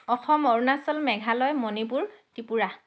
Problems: none marked